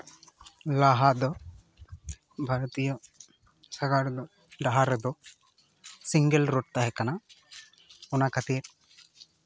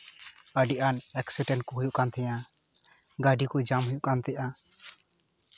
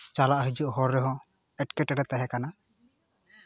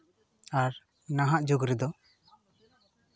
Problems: background sounds at intervals